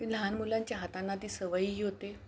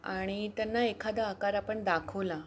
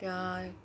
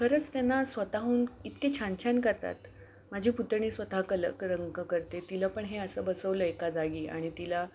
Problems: none marked